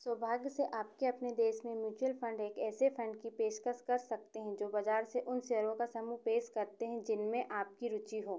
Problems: echo